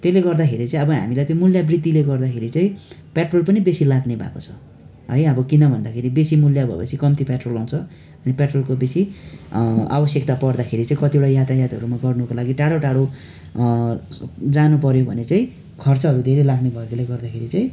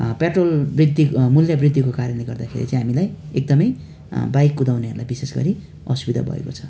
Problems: none marked